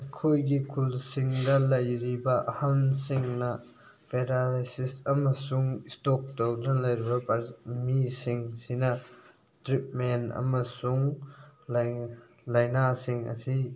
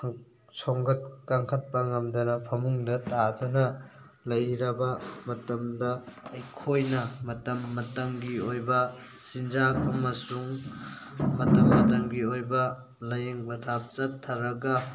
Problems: background sounds at intervals